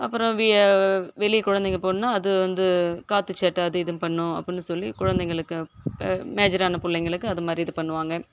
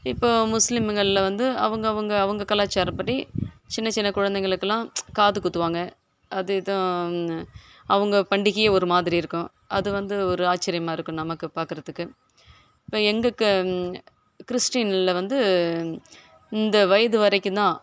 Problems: background sounds at intervals